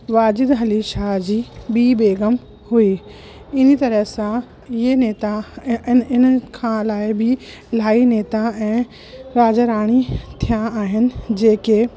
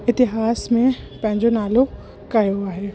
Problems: constant background noise